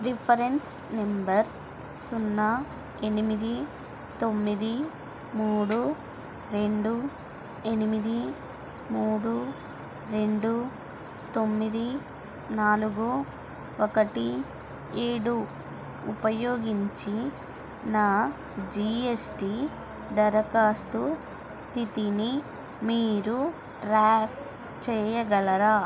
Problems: constant background noise